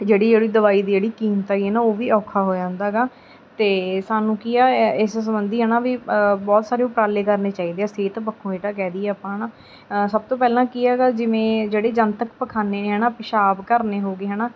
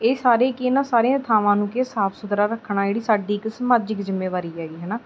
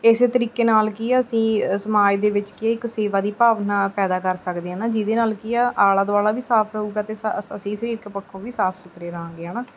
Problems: background sounds at intervals